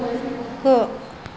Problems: none marked